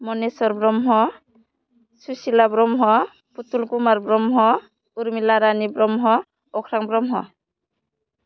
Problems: none marked